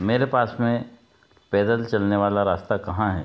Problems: background sounds at intervals